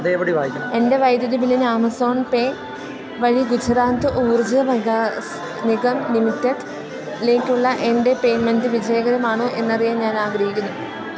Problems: constant background noise, background conversations at intervals